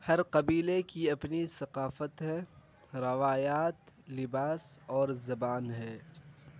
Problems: constant background noise